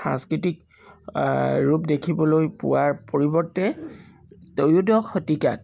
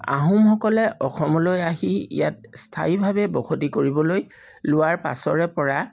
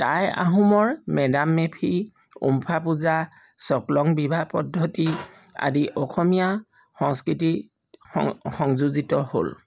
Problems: background sounds at intervals